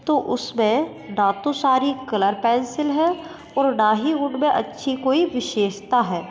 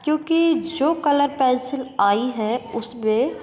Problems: constant background noise, echo